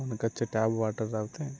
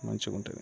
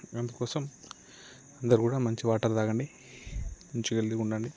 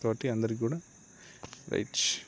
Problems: none marked